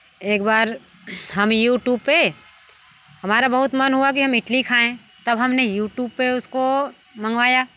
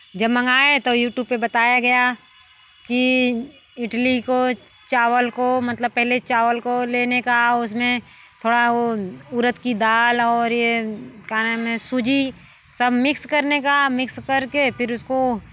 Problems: none marked